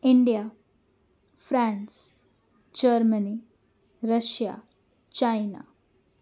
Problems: none marked